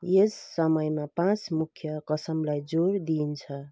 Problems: background sounds at intervals